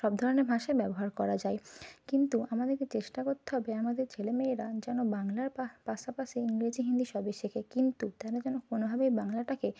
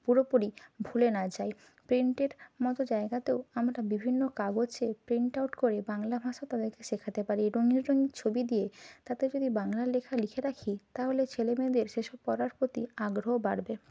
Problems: constant background noise